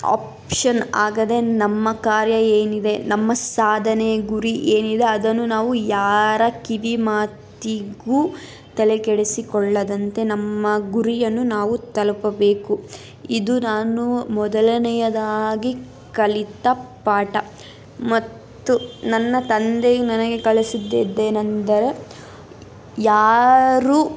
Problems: constant background noise